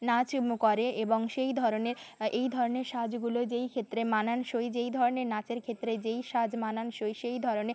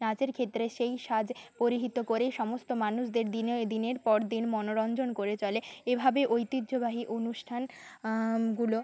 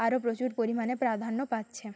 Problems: none marked